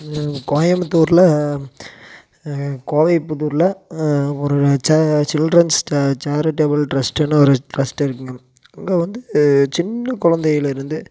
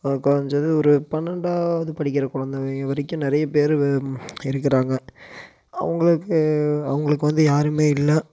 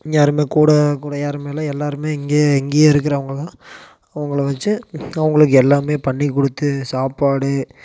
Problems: constant background noise